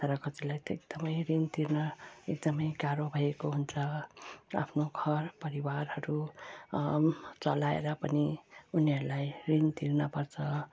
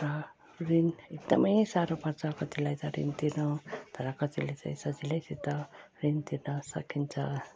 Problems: low volume